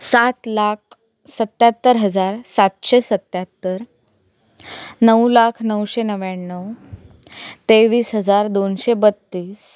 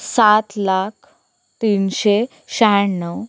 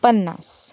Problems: background sounds at intervals